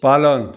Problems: none marked